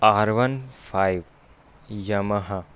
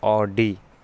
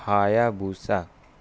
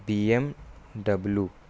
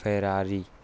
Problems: constant background noise